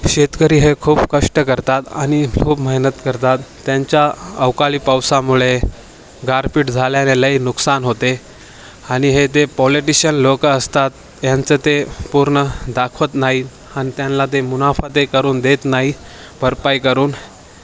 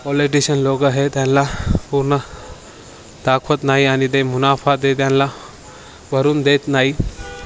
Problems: constant background noise, continuous background conversations